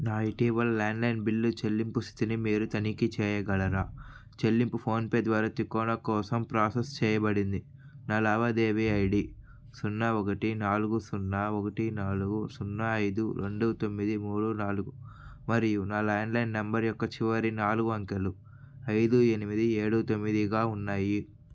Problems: none marked